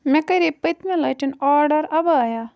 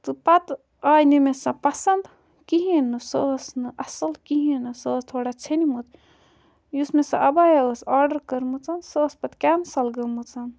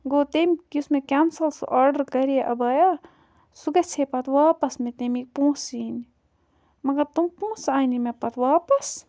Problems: background sounds at intervals